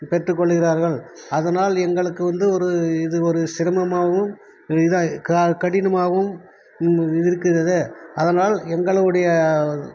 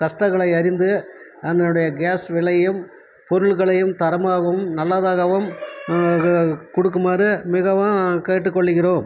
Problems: constant background noise, background conversations at intervals